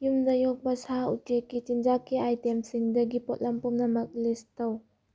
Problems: none marked